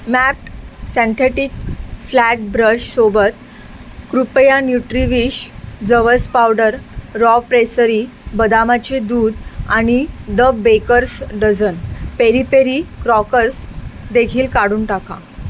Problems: constant background noise